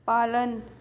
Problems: background sounds at intervals